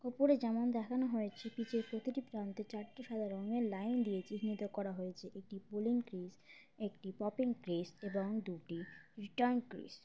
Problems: background conversations at intervals